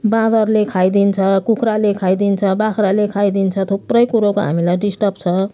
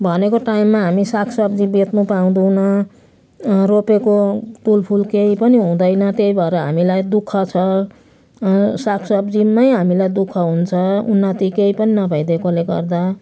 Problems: none marked